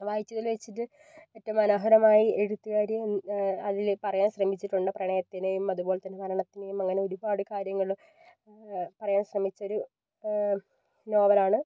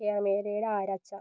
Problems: low volume